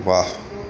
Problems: constant background noise, background conversations at intervals